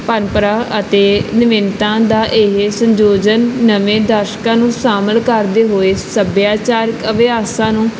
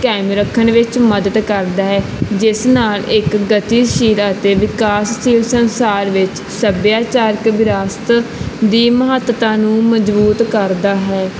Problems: background conversations at intervals